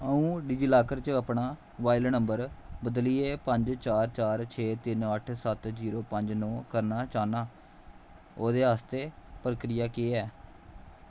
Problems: constant background noise